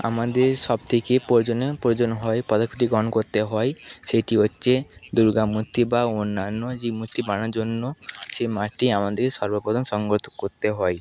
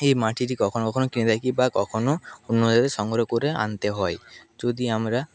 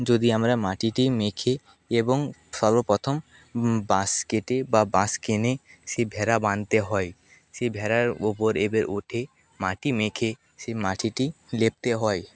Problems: background sounds at intervals, background conversations at intervals